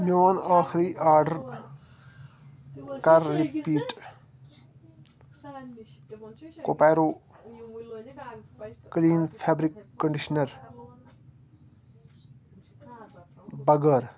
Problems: constant background noise, continuous background conversations